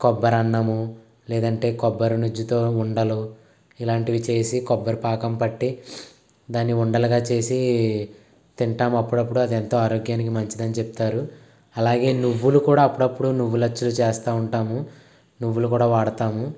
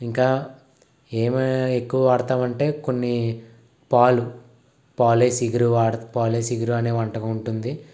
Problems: constant background noise